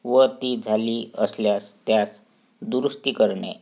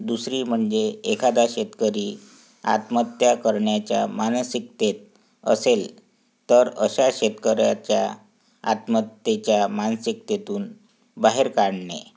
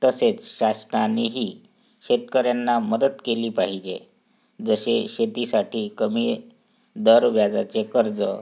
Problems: background sounds at intervals